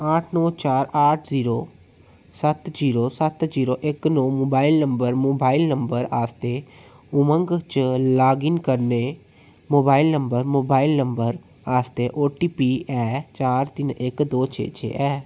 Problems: none marked